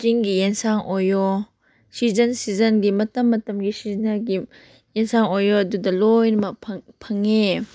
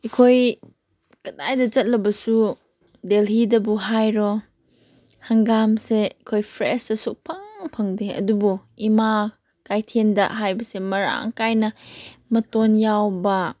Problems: background sounds at intervals